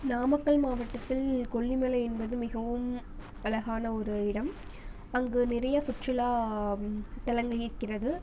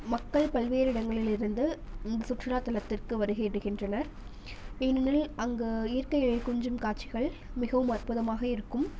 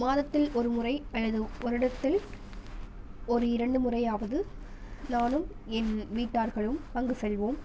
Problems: constant background noise